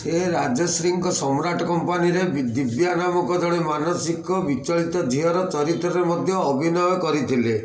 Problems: constant background noise, continuous background conversations